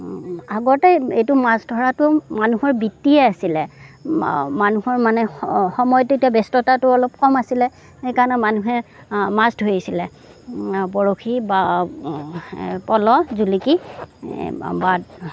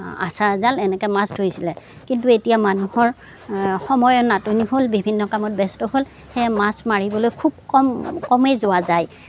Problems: none marked